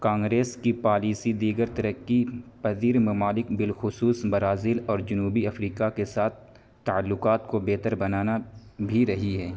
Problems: constant background noise